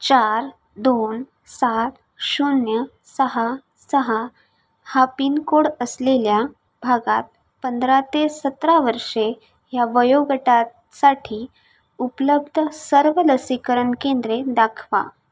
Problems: background sounds at intervals